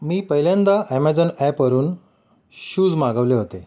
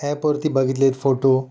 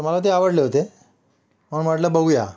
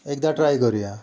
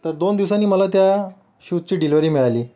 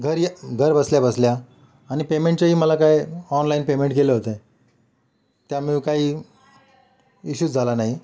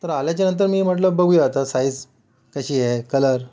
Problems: background sounds at intervals, background conversations at intervals